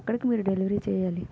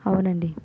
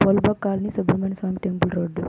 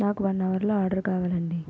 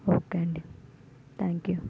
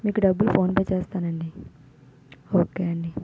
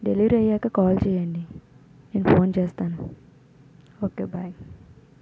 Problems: constant background noise, background conversations at intervals, low volume